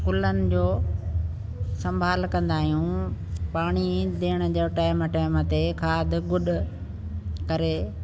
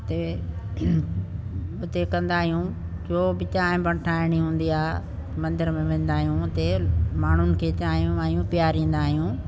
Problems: constant background noise